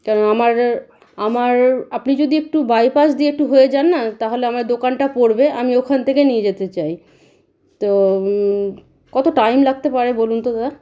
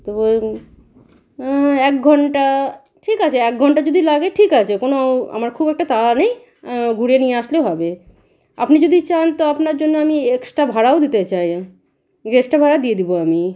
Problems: constant background noise, background conversations at intervals